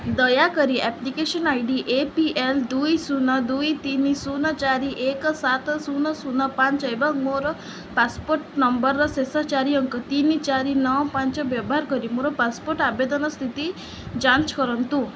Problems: none marked